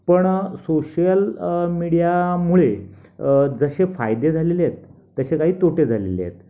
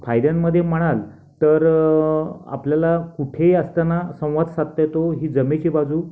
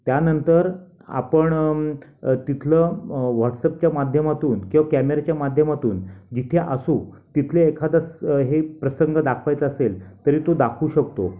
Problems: constant background noise